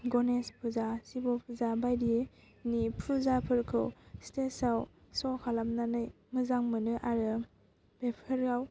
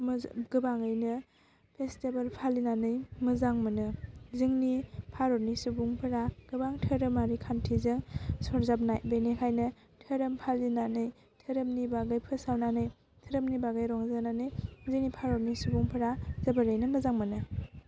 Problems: constant background noise